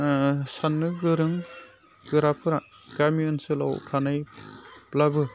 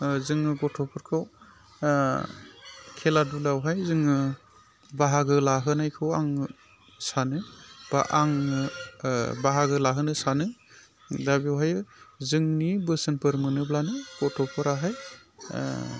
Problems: low volume